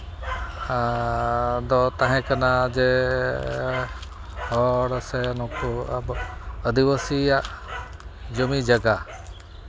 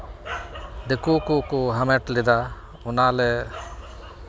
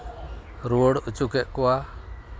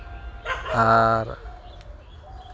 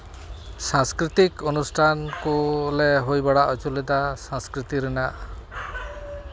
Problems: none marked